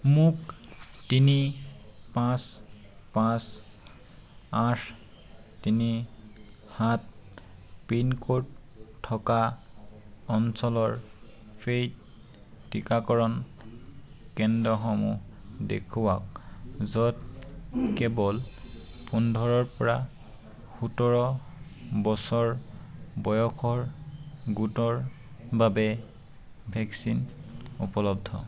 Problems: none marked